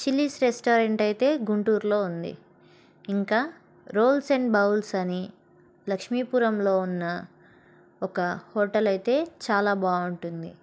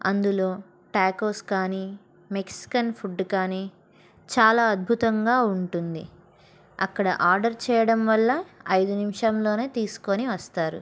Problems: background sounds at intervals